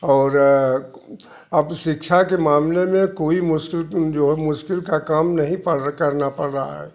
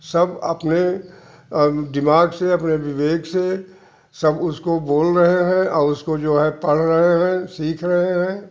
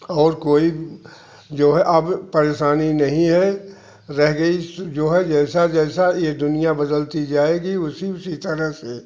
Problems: constant background noise